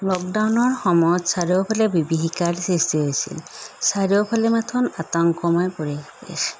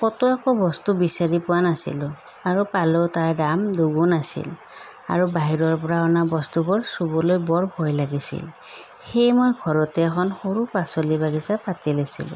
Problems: none marked